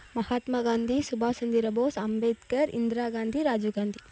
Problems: background sounds at intervals